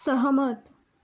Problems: none marked